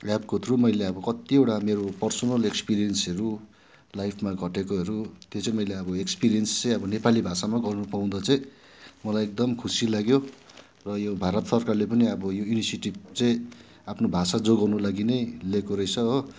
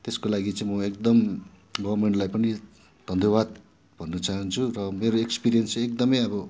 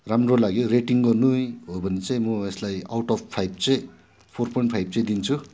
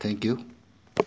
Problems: background sounds at intervals